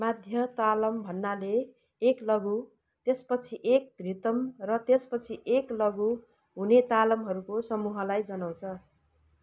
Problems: background sounds at intervals